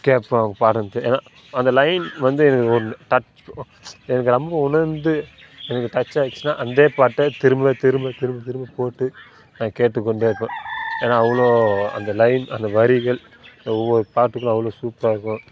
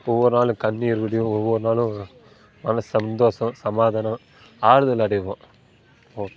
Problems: constant background noise